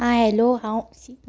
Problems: background sounds at intervals